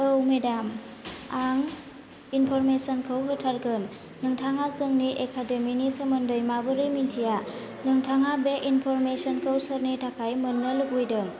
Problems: constant background noise